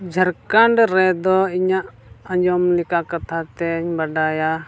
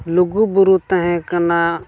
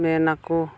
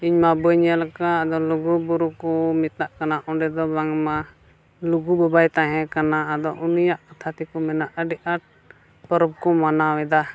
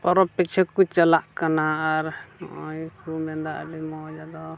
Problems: constant background noise